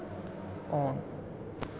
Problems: none marked